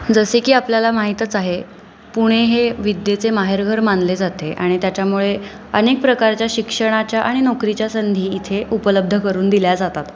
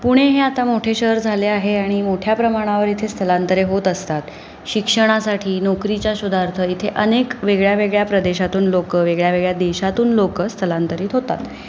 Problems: constant background noise